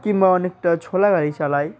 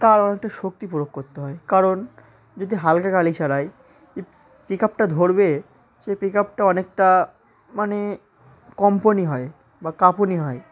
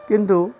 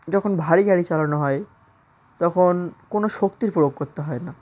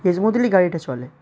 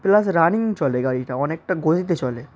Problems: constant background noise, continuous background conversations